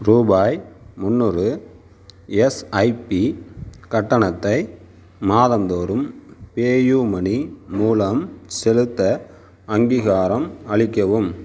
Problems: none marked